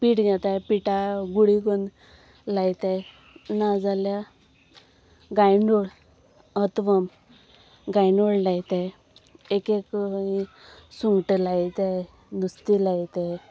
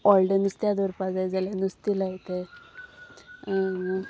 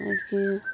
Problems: constant background noise